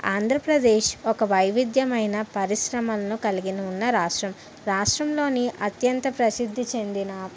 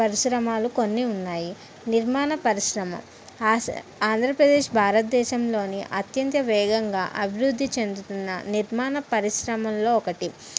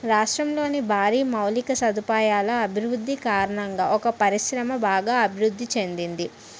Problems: none marked